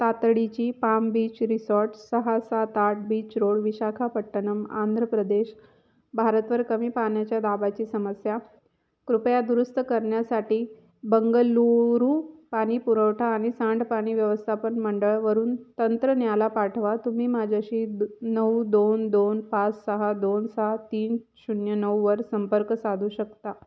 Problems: none marked